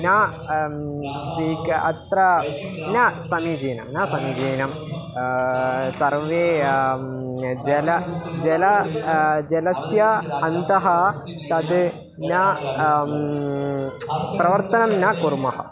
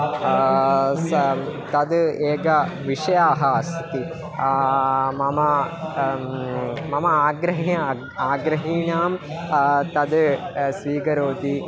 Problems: continuous background conversations